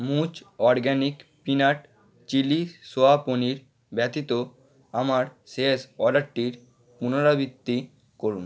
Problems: background conversations at intervals